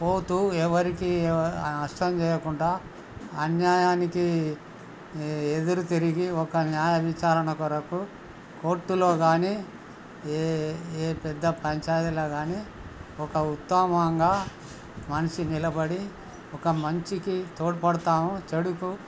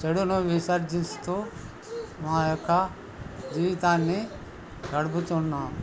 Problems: none marked